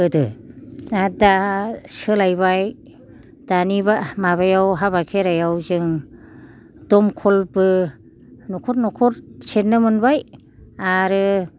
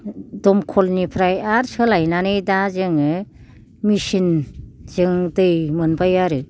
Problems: none marked